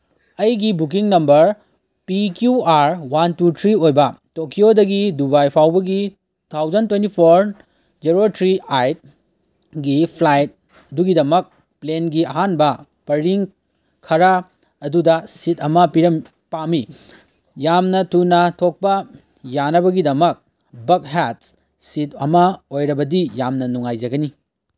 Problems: background sounds at intervals